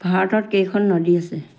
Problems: none marked